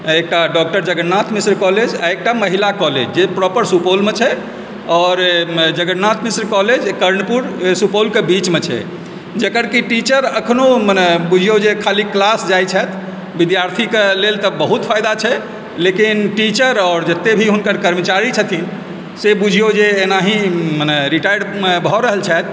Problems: background sounds at intervals